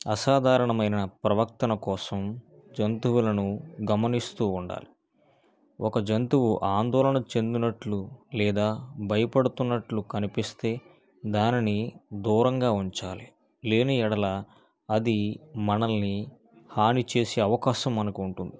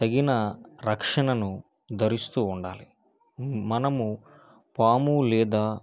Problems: none marked